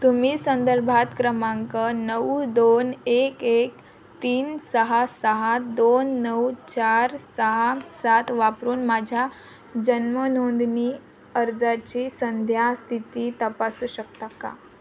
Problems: constant background noise